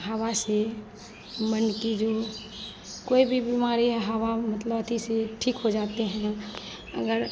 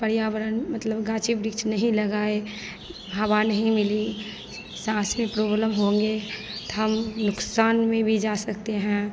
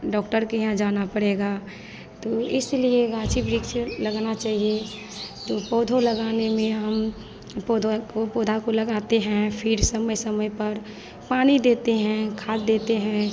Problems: constant background noise